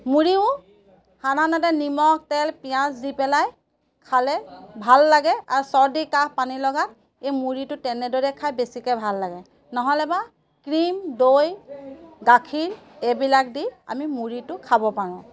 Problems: background sounds at intervals